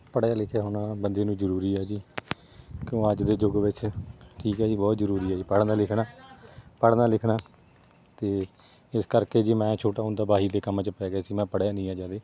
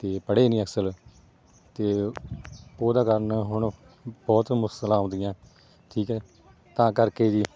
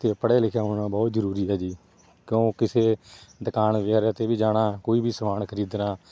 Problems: background sounds at intervals